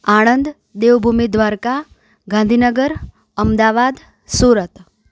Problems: none marked